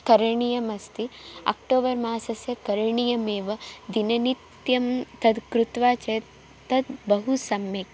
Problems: none marked